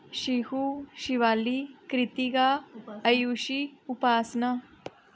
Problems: none marked